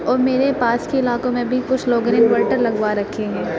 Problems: constant background noise, continuous background conversations